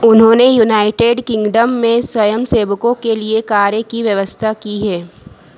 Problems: none marked